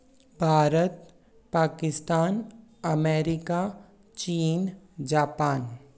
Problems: none marked